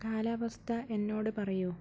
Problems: low volume